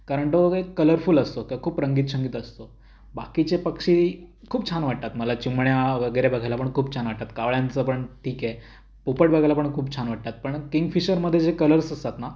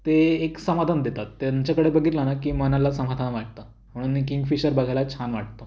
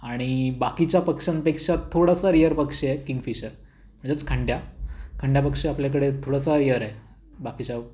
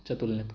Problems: none marked